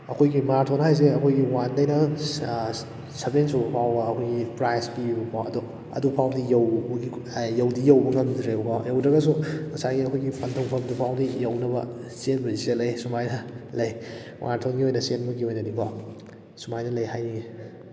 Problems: background sounds at intervals